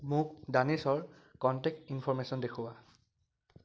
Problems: background sounds at intervals